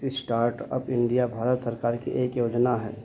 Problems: constant background noise, low volume